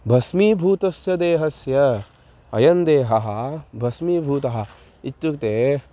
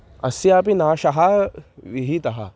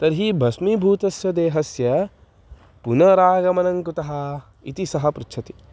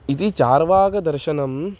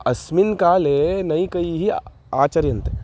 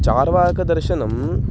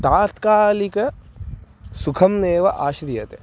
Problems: constant background noise